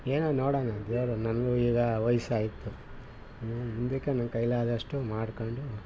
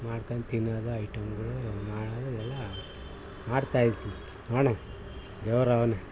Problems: background sounds at intervals